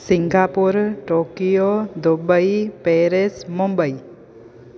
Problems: constant background noise, echo